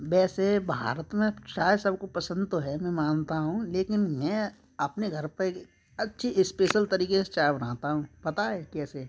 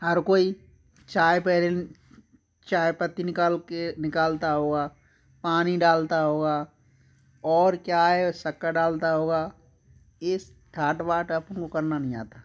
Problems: constant background noise, background conversations at intervals